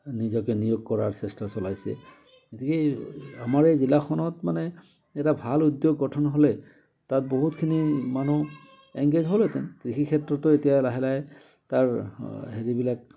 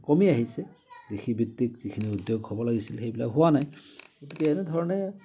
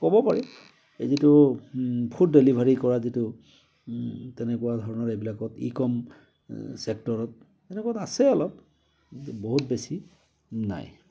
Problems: none marked